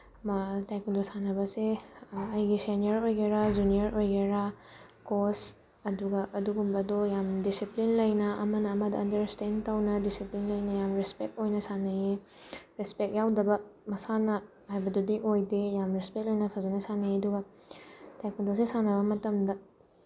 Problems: background sounds at intervals